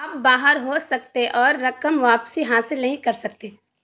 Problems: constant background noise